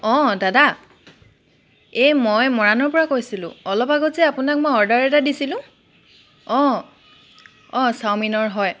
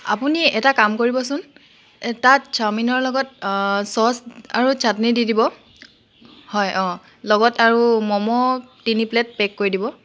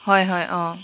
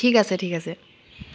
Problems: none marked